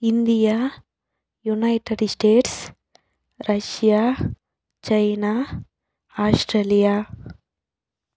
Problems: background sounds at intervals